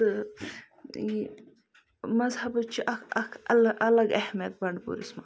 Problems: background sounds at intervals